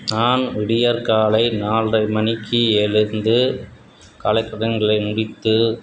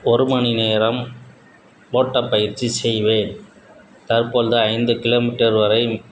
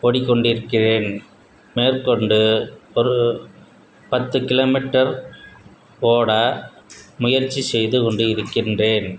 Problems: background sounds at intervals